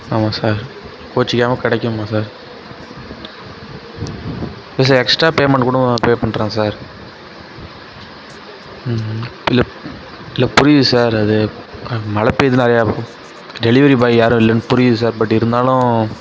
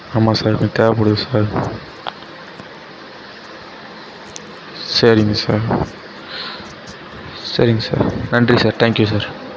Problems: none marked